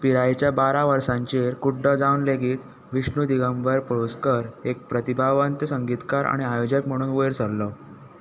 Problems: background sounds at intervals